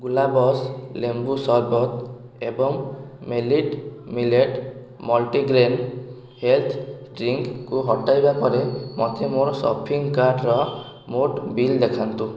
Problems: constant background noise